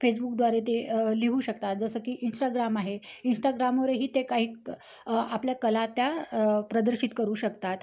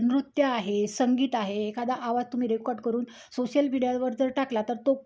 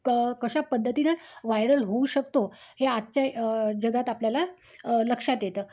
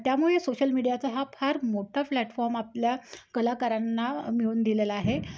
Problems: background sounds at intervals